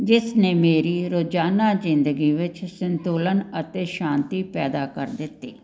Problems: none marked